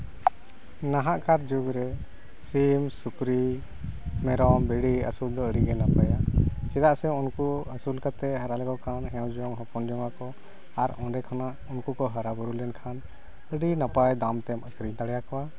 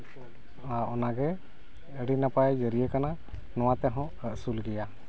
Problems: constant background noise